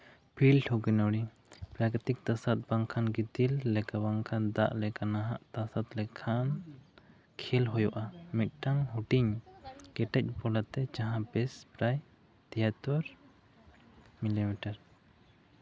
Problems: none marked